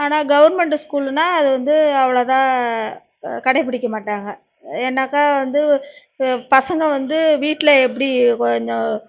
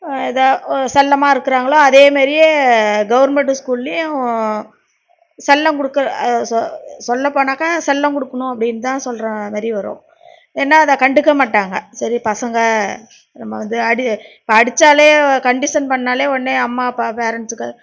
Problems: none marked